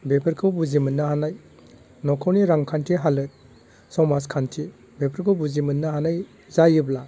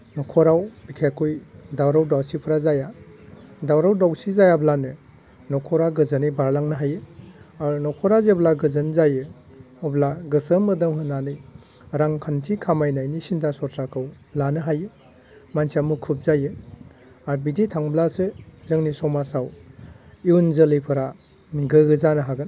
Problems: none marked